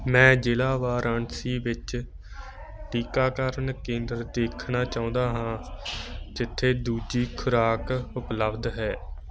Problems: none marked